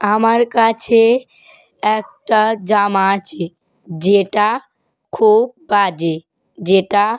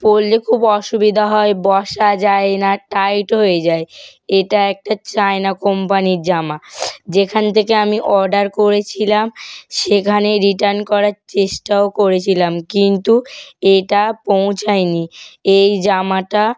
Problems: none marked